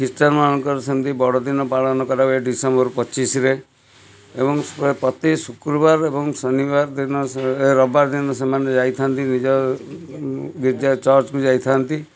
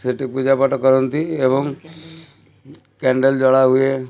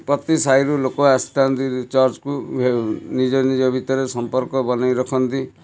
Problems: constant background noise, continuous background conversations